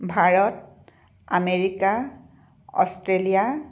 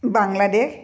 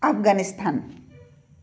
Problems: low volume